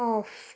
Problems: none marked